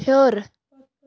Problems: continuous background conversations